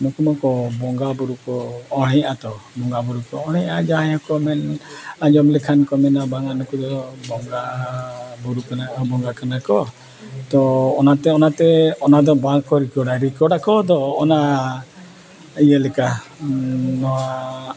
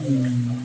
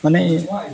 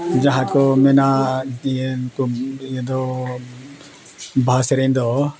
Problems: constant background noise, continuous background conversations